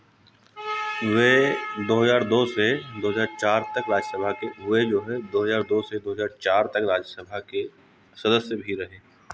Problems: none marked